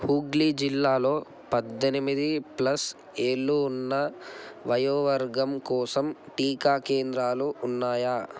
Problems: none marked